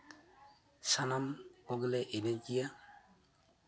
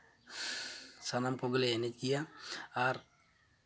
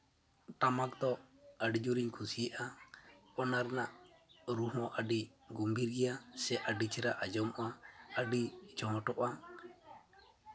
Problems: constant background noise